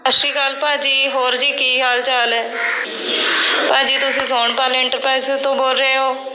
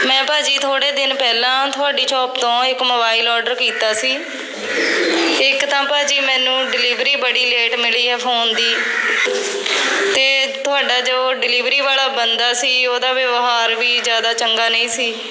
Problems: constant background noise, background conversations at intervals